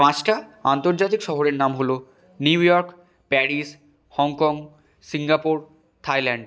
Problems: constant background noise